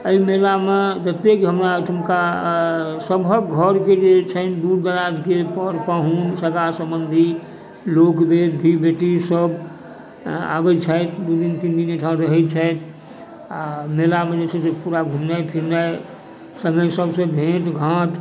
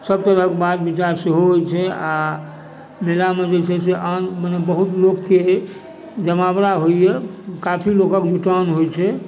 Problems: background sounds at intervals, background conversations at intervals